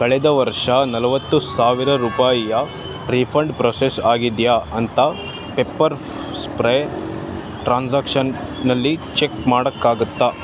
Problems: constant background noise